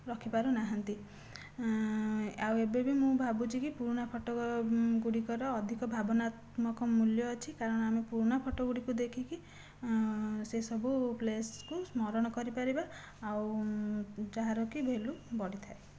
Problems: low volume